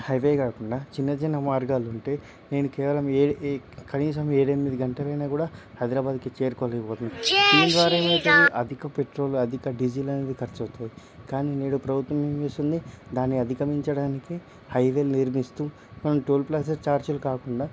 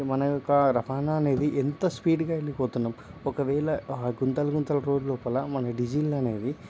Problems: background conversations at intervals